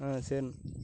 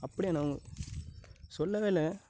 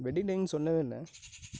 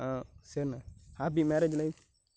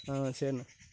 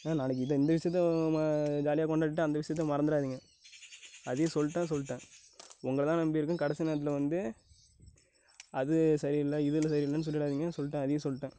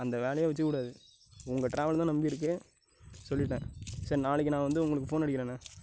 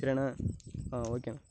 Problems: background sounds at intervals, low volume